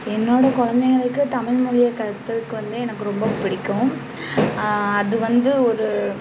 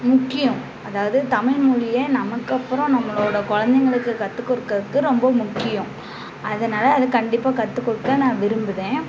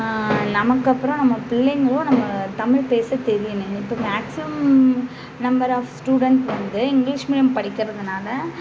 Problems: constant background noise, background conversations at intervals